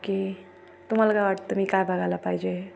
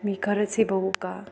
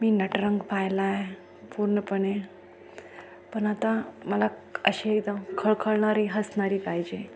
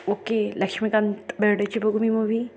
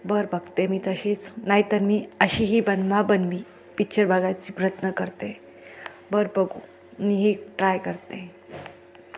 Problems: none marked